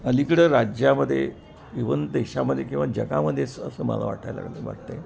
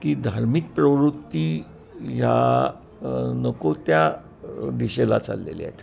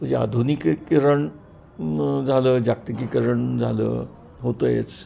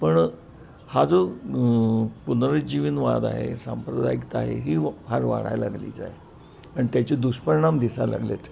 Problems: constant background noise, background conversations at intervals